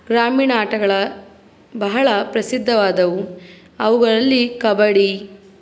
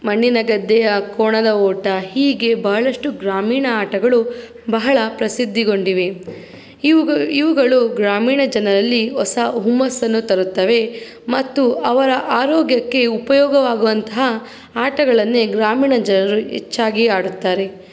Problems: background sounds at intervals